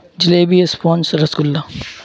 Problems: constant background noise